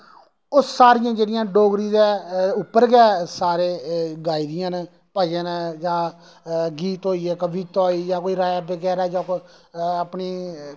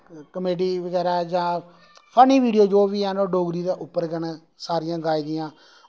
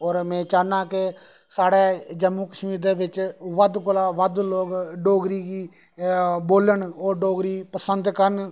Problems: none marked